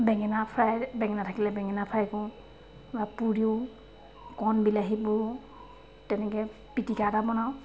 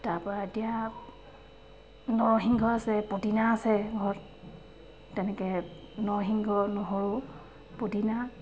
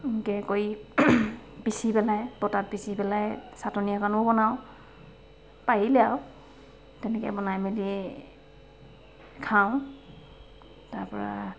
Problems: constant background noise, background conversations at intervals